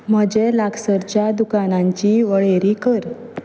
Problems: background sounds at intervals